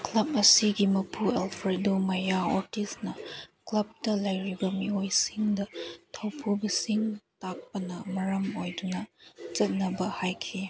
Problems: background sounds at intervals